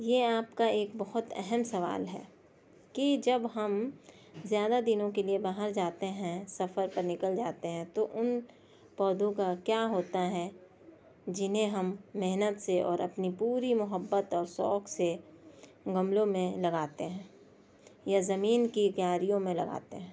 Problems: none marked